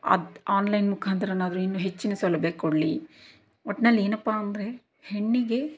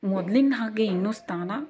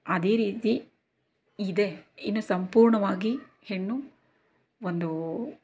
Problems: none marked